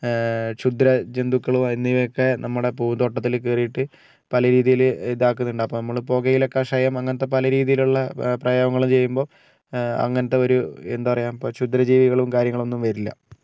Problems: none marked